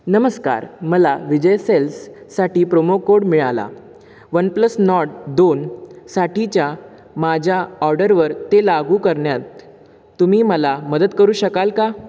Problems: background sounds at intervals